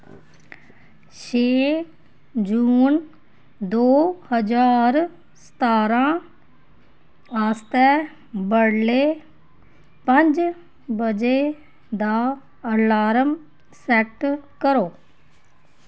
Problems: none marked